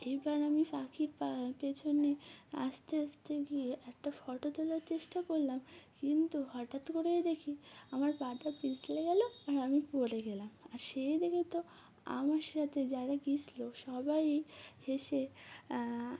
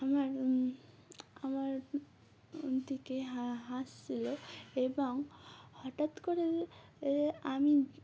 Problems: none marked